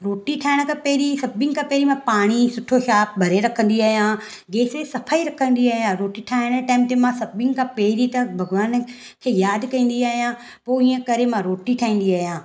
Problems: none marked